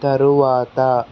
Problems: constant background noise